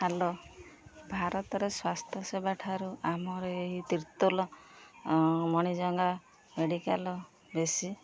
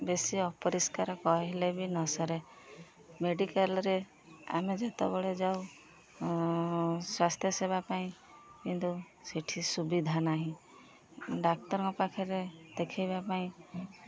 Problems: constant background noise, continuous background conversations